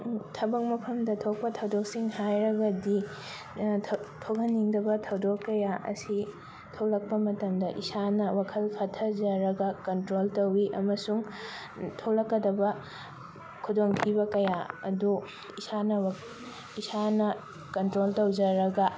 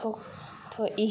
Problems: background sounds at intervals